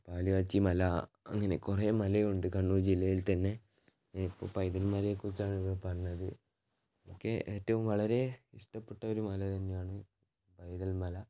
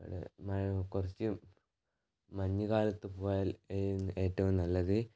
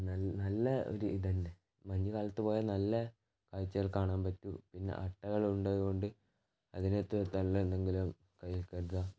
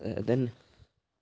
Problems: low volume